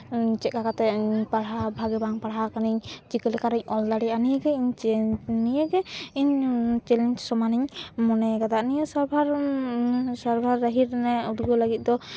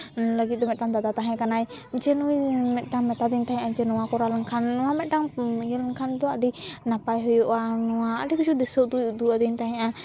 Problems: background sounds at intervals